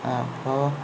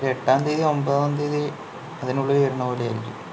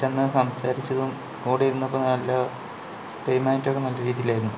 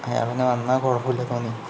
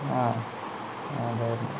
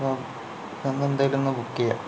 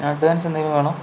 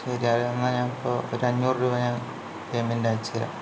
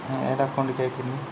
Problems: low volume